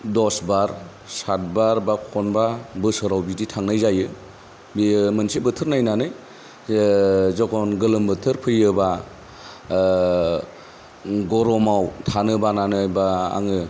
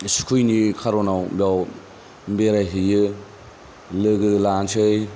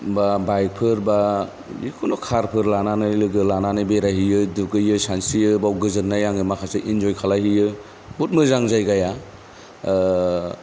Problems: none marked